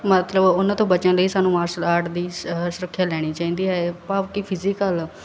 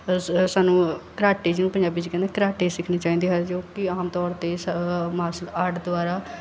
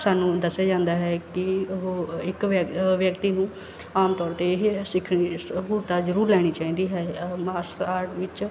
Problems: none marked